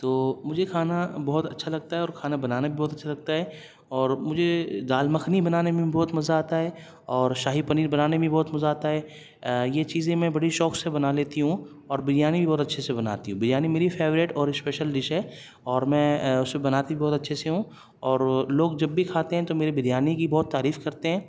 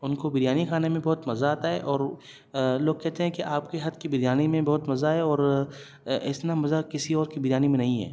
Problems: none marked